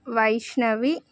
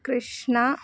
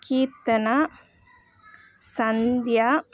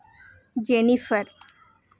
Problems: continuous background conversations